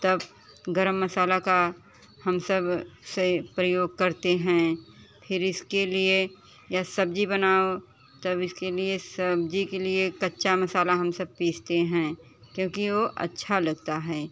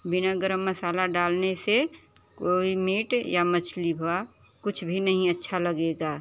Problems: none marked